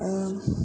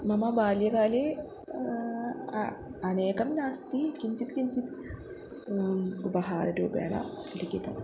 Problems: constant background noise